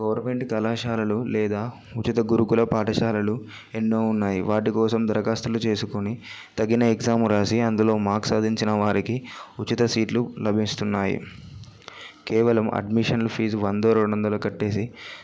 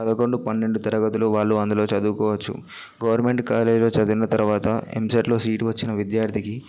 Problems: background conversations at intervals